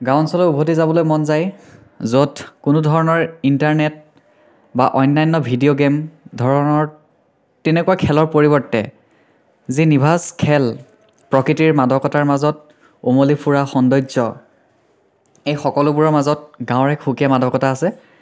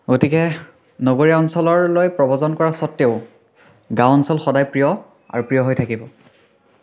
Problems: continuous background conversations, echo